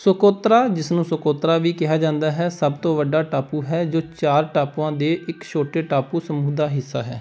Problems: background sounds at intervals